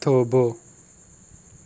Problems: none marked